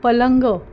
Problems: background sounds at intervals